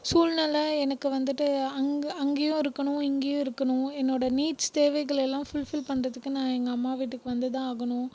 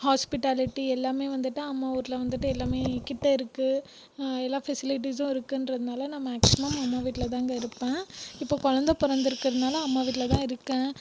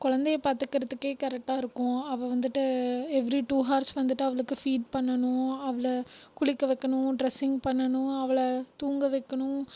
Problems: background sounds at intervals